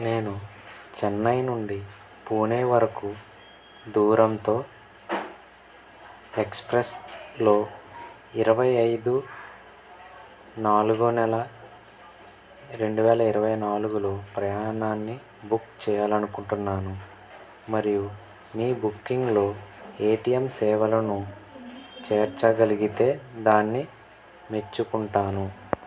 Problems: background sounds at intervals